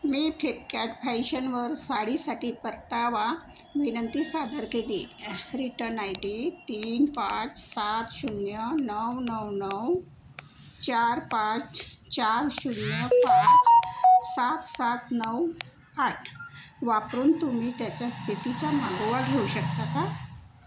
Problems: background sounds at intervals